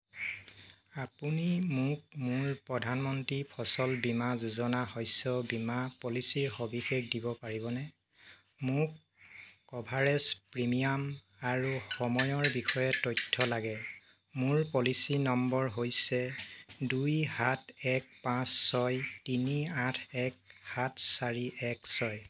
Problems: none marked